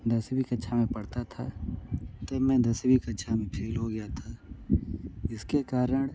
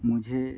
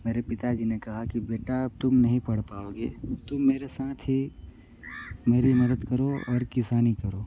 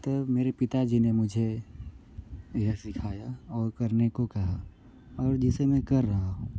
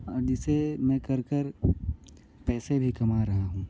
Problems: none marked